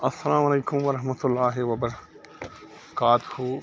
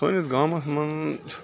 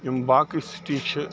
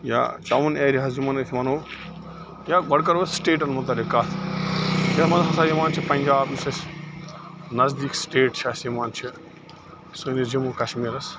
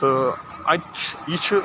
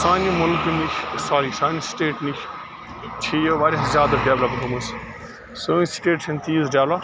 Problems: constant background noise